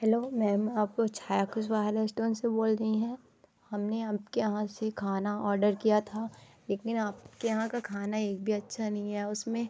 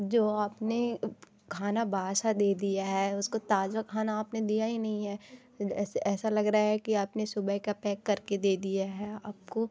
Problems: background sounds at intervals